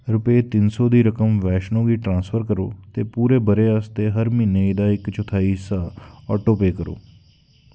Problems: background sounds at intervals